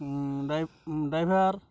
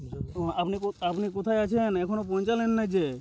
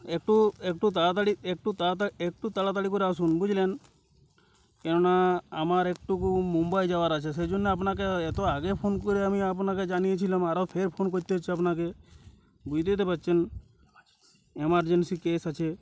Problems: none marked